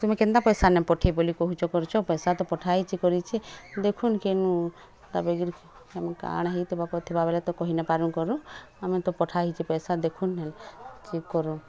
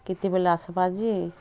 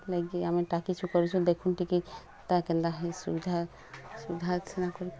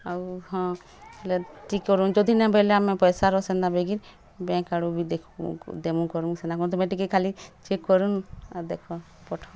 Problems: constant background noise, continuous background conversations